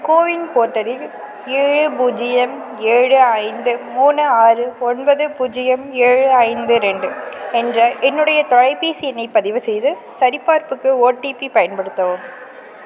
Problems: none marked